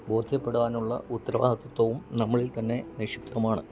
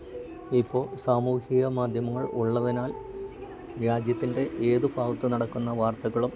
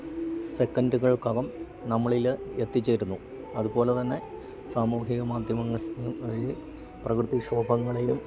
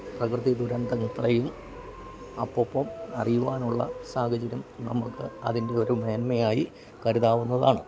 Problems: background sounds at intervals, low volume